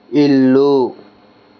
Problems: constant background noise